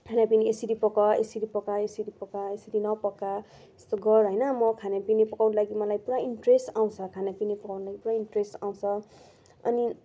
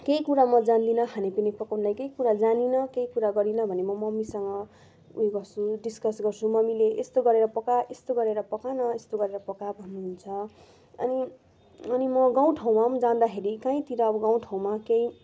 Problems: background sounds at intervals